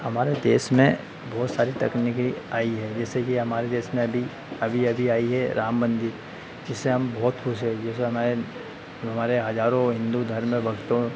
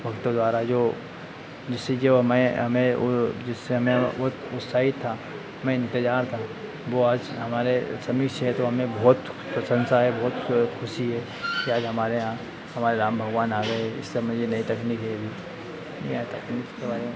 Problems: constant background noise